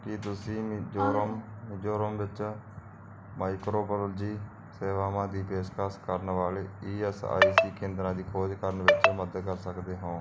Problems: background sounds at intervals